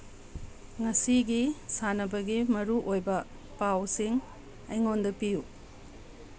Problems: constant background noise